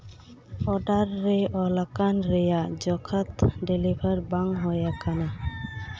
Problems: background sounds at intervals